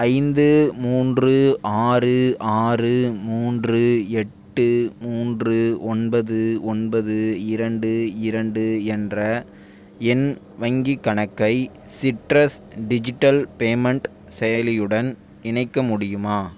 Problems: none marked